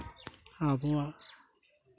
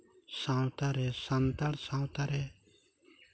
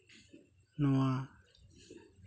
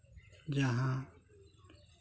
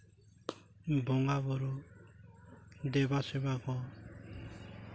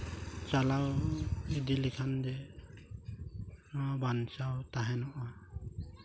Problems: none marked